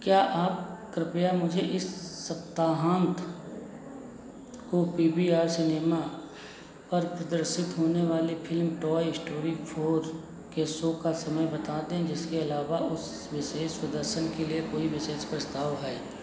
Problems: none marked